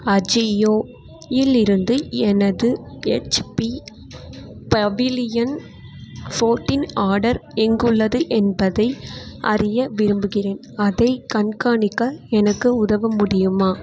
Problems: none marked